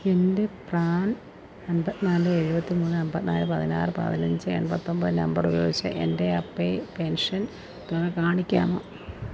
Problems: constant background noise